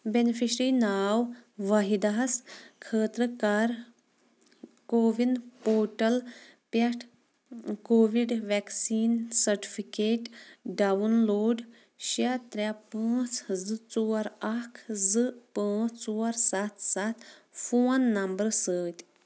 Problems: background sounds at intervals